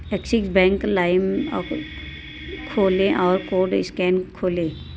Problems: constant background noise